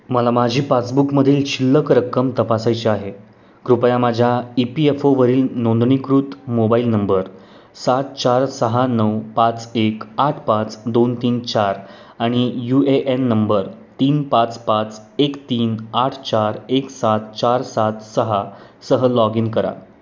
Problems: none marked